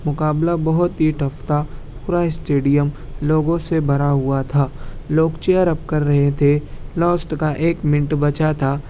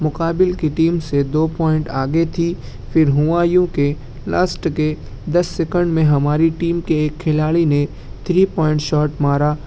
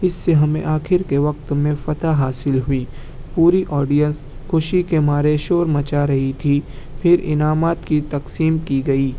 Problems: none marked